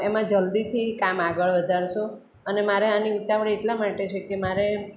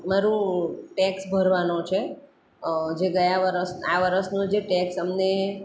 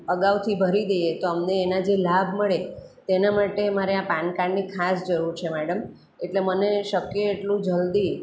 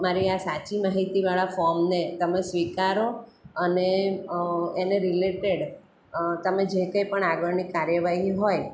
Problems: none marked